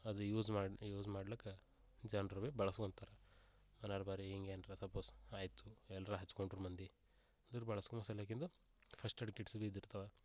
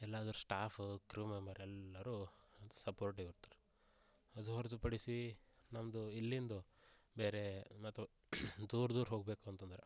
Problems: none marked